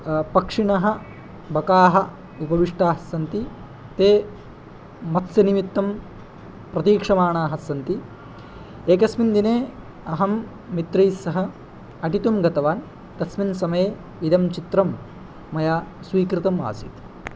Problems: none marked